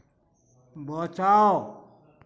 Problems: none marked